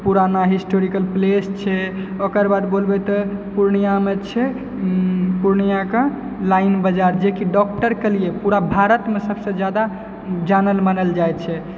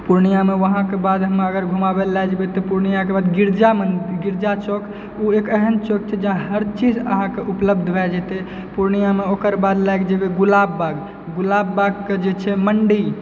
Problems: background sounds at intervals